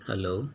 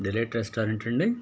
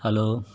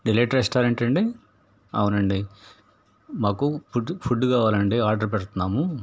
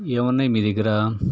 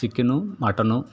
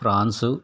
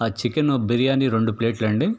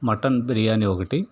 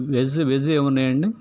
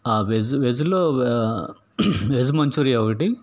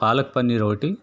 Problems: none marked